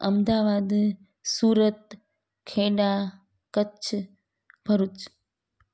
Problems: none marked